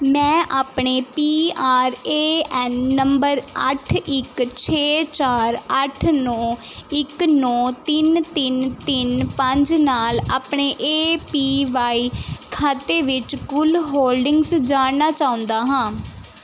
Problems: none marked